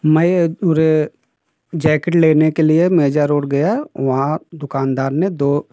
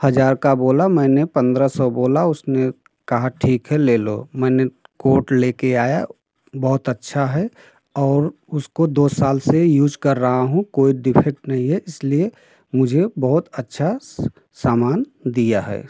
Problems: constant background noise